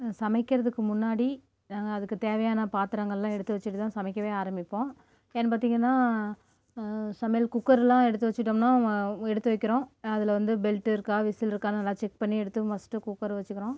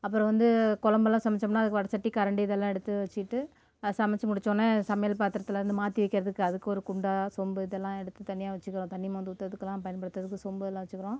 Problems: none marked